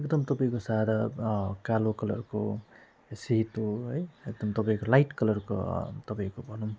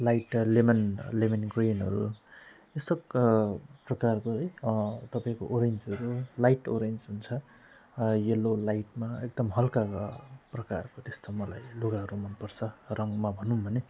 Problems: none marked